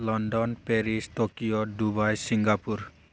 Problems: none marked